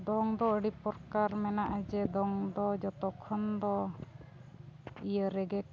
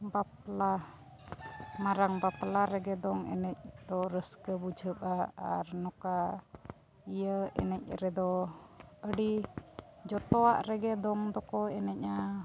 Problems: background sounds at intervals